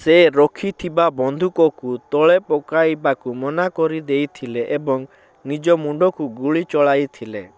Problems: none marked